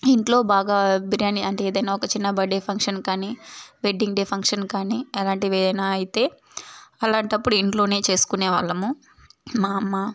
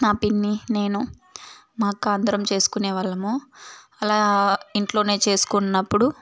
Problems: none marked